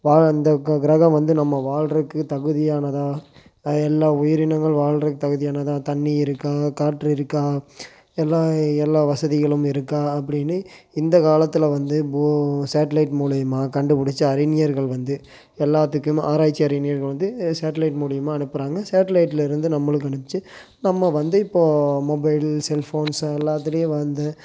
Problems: constant background noise